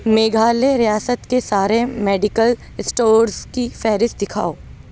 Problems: background sounds at intervals